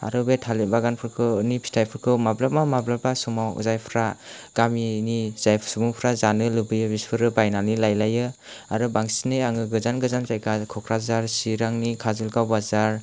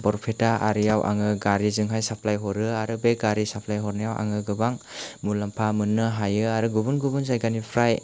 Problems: background sounds at intervals